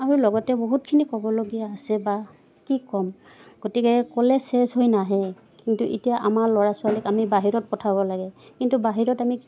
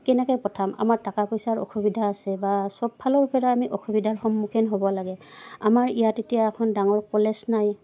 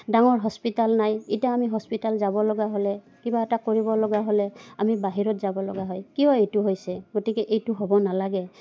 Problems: none marked